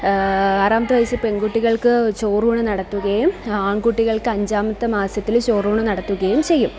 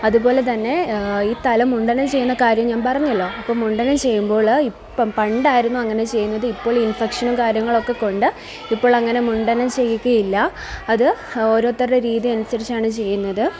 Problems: continuous background conversations